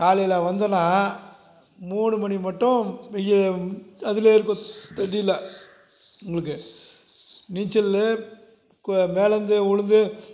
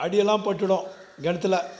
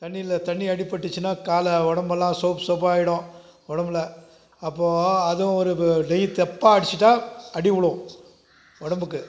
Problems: none marked